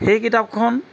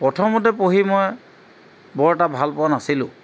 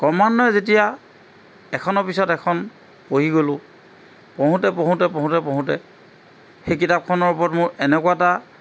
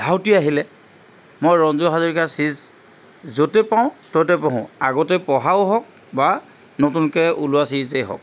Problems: none marked